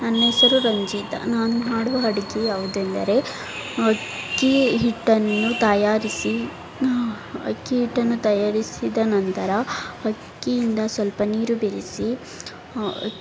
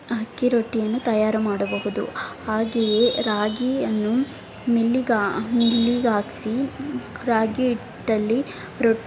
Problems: background sounds at intervals